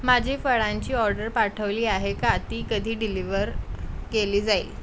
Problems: constant background noise